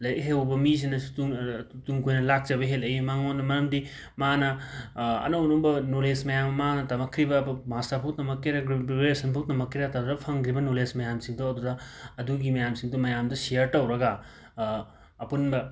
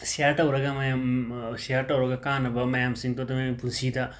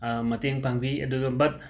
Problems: background sounds at intervals, background conversations at intervals